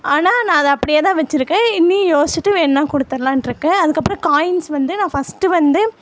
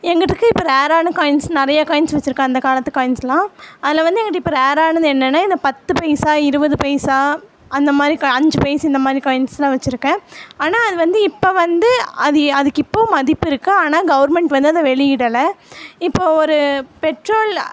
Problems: none marked